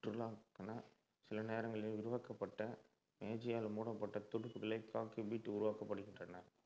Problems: low volume